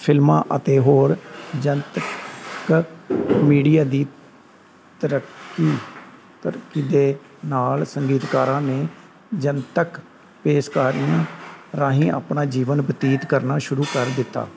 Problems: constant background noise, background conversations at intervals